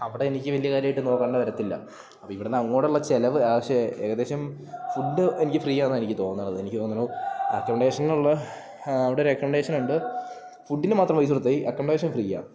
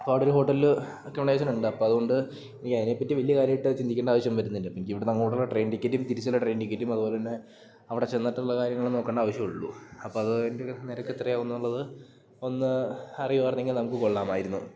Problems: none marked